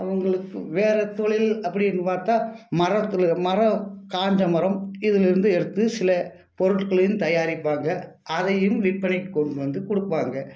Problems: background sounds at intervals